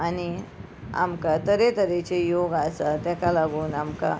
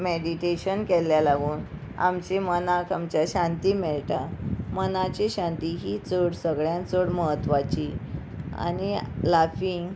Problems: constant background noise